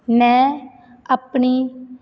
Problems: background sounds at intervals